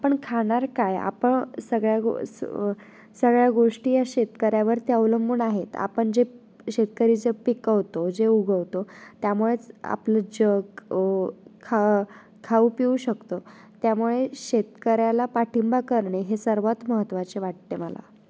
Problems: none marked